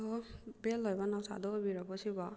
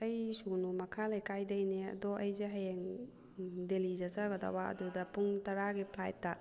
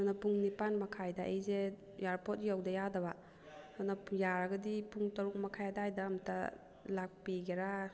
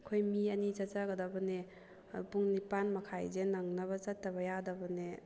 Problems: background sounds at intervals